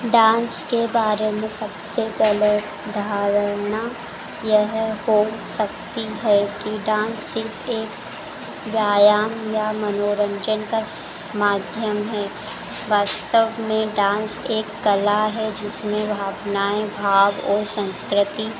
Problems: background sounds at intervals